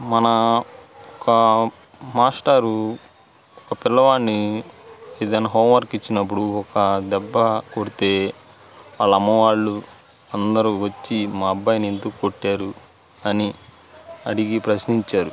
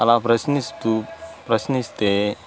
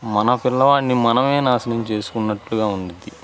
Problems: constant background noise, background conversations at intervals